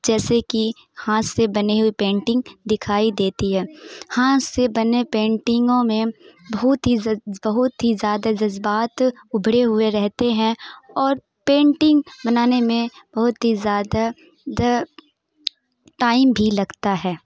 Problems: background sounds at intervals